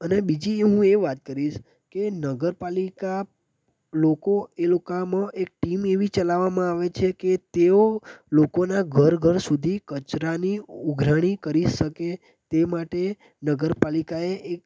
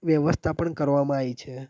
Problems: constant background noise